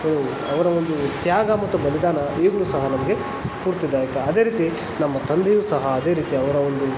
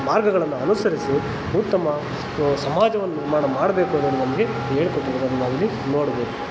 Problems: constant background noise